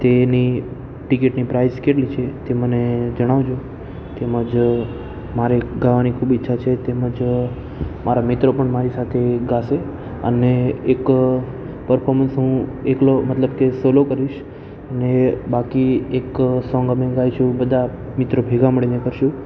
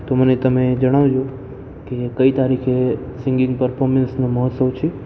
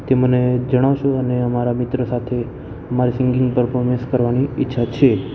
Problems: constant background noise